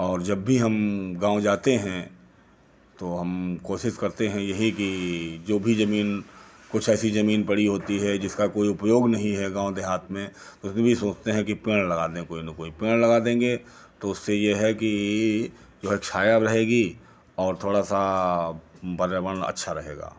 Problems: none marked